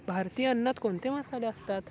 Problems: constant background noise, background conversations at intervals